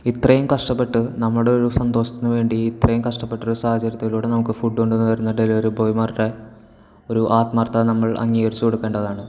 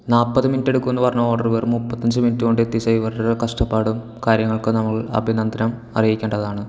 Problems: background sounds at intervals